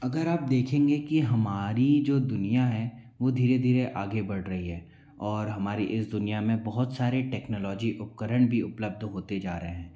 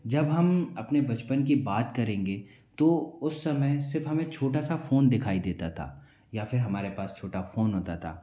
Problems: low volume